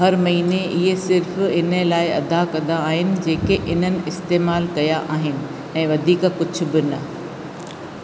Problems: constant background noise, echo